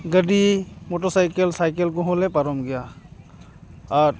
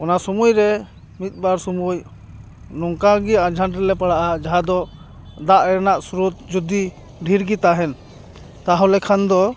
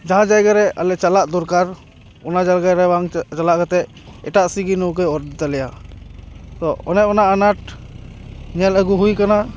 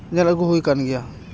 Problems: background sounds at intervals